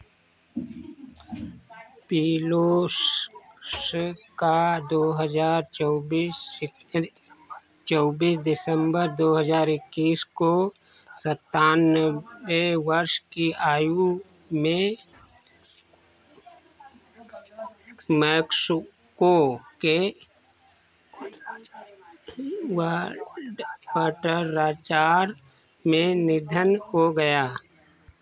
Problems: none marked